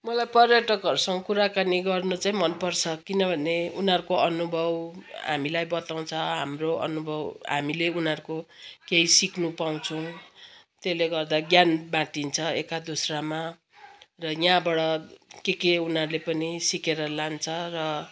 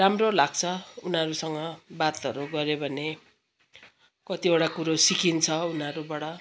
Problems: constant background noise, continuous background conversations